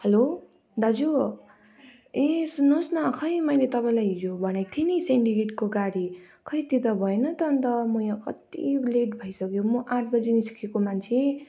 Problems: continuous background conversations